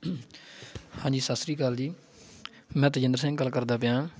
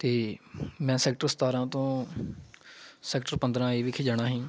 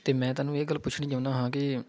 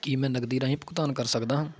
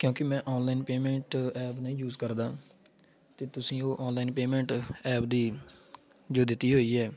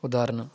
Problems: background sounds at intervals